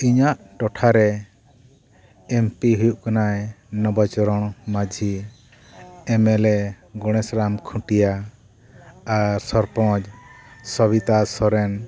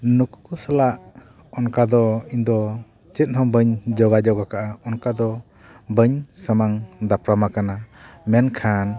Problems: background conversations at intervals